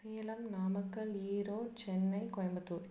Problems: low volume